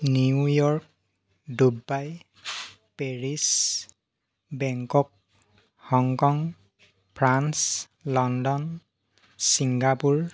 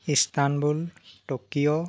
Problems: constant background noise